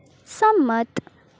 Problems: none marked